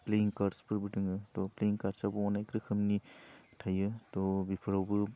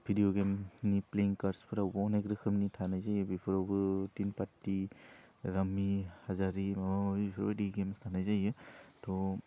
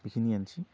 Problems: low volume